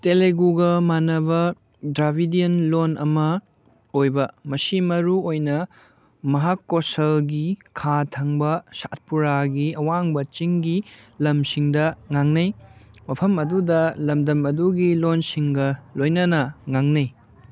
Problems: none marked